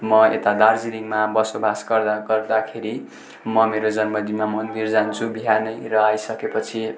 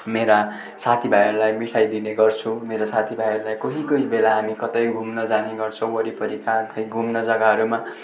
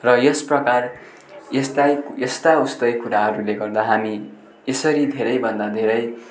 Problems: constant background noise